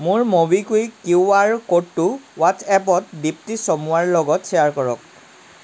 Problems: none marked